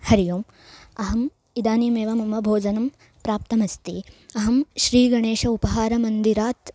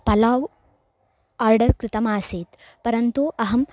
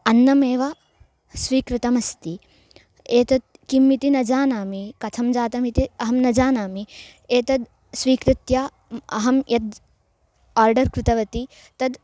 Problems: none marked